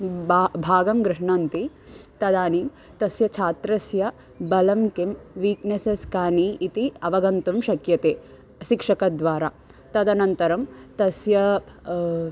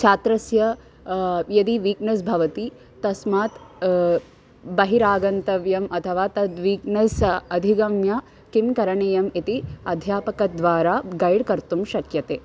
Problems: constant background noise